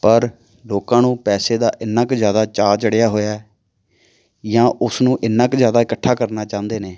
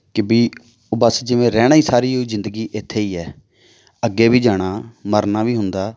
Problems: none marked